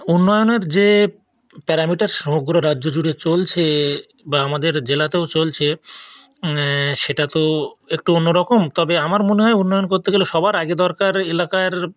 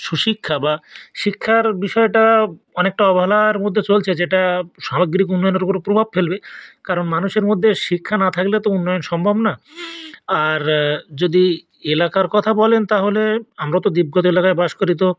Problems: none marked